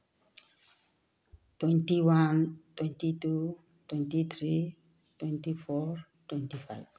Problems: none marked